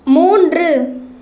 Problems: none marked